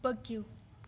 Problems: constant background noise